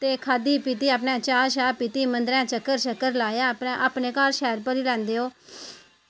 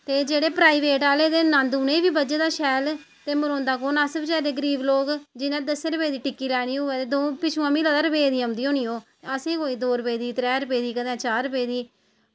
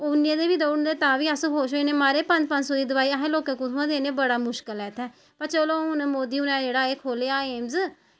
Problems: background sounds at intervals